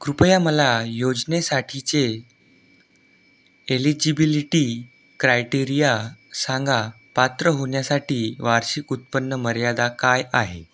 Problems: none marked